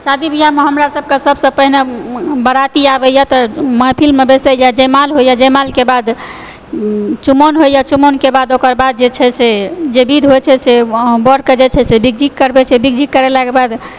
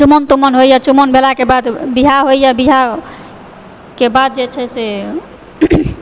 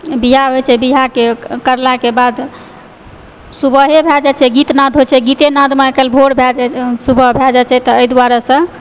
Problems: background sounds at intervals